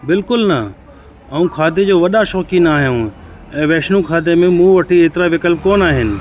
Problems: constant background noise, background conversations at intervals